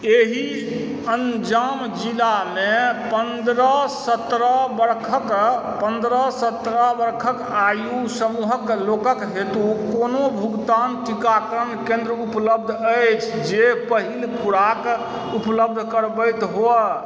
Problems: constant background noise